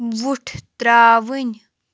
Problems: none marked